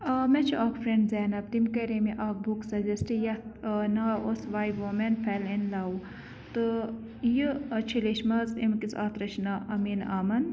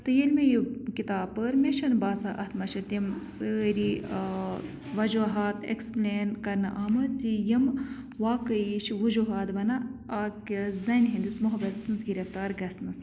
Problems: constant background noise